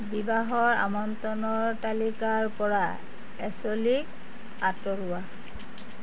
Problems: none marked